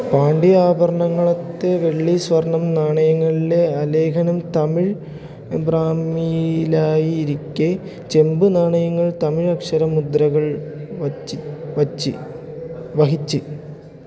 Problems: constant background noise, low volume